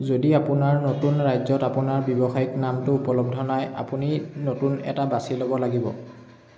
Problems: constant background noise, echo